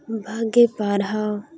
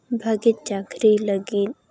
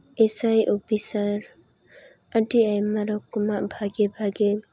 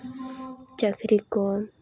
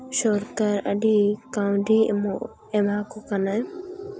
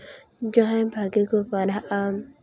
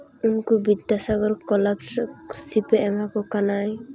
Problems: constant background noise, background conversations at intervals